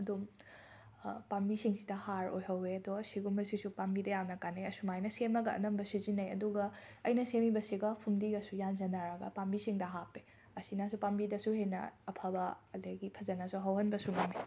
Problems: none marked